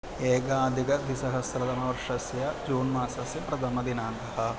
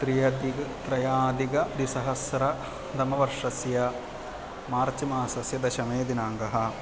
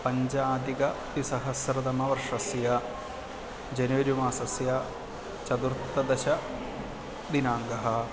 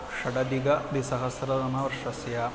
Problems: constant background noise